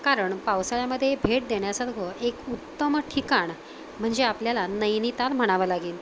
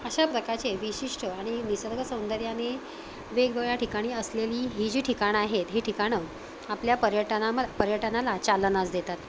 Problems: constant background noise